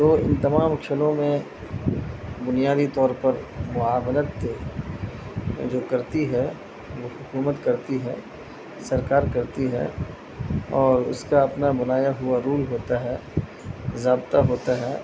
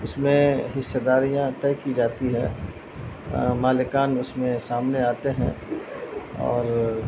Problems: constant background noise